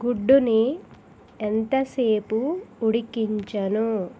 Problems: none marked